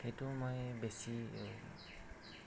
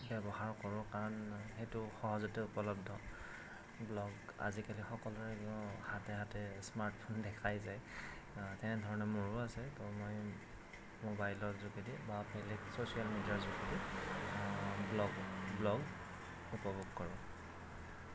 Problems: constant background noise, low volume